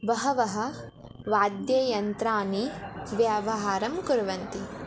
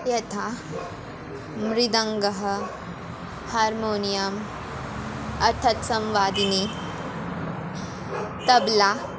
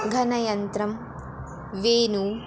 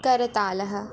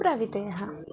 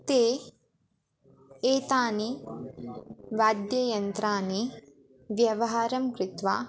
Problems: none marked